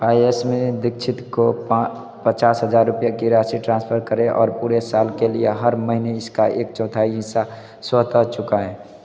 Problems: none marked